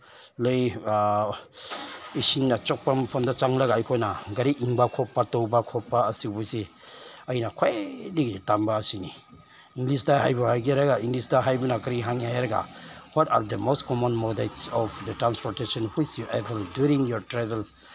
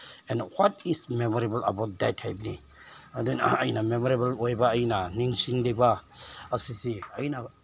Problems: none marked